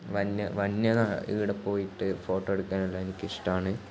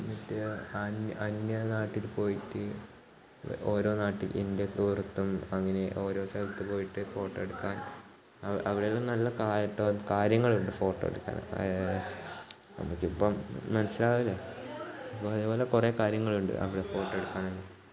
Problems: background sounds at intervals, low volume